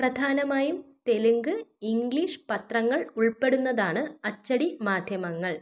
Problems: none marked